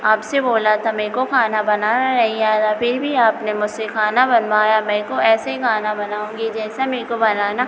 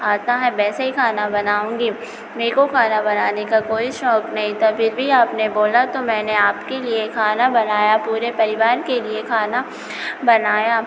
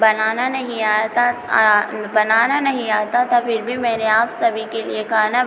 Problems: constant background noise